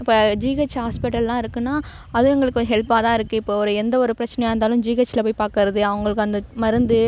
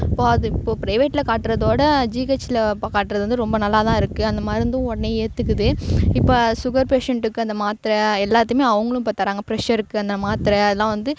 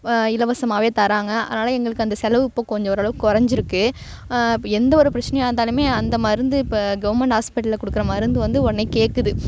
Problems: background sounds at intervals